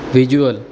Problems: background sounds at intervals